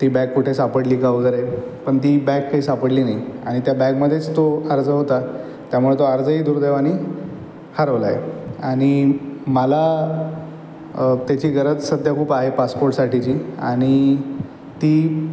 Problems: background sounds at intervals